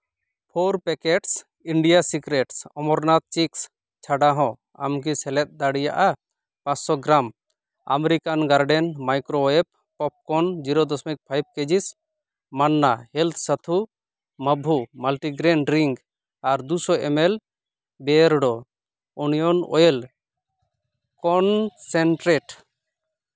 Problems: none marked